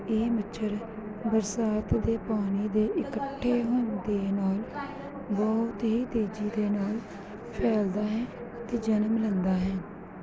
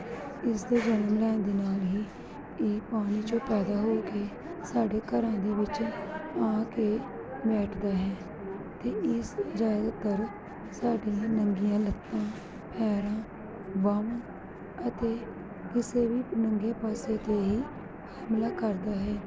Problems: background sounds at intervals